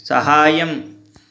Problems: none marked